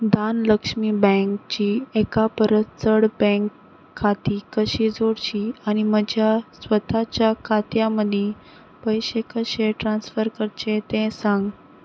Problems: none marked